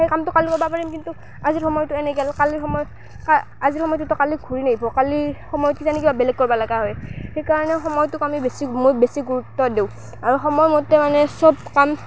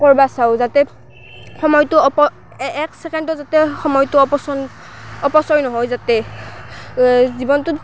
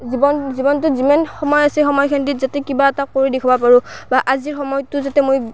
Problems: constant background noise